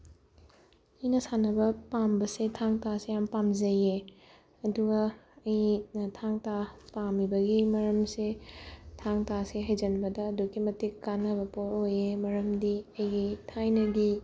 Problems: background sounds at intervals